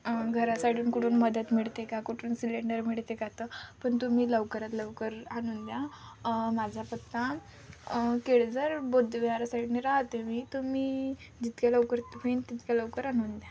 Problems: none marked